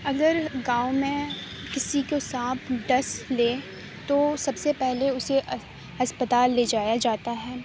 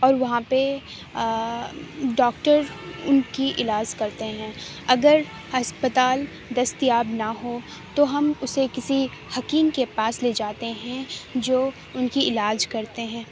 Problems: none marked